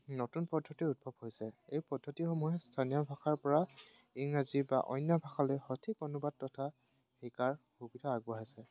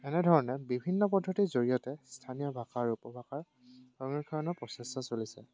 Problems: background sounds at intervals